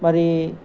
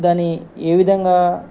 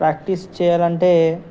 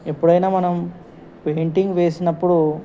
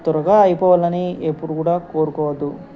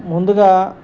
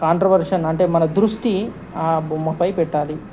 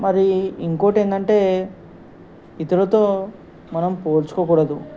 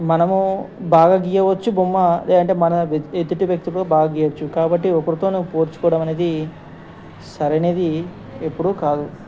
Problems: constant background noise